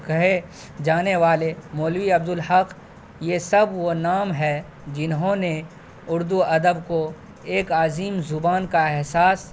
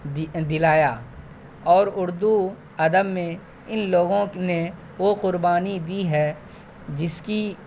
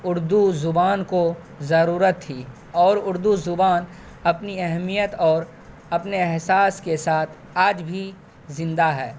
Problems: constant background noise